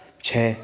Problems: echo